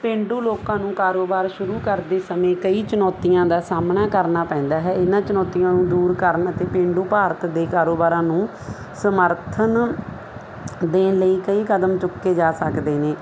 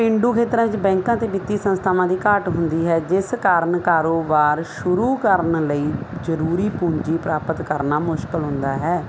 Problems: constant background noise